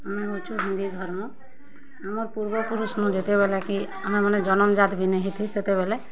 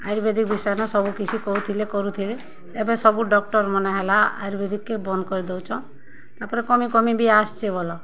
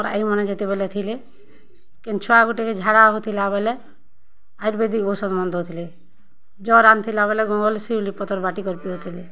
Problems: constant background noise, continuous background conversations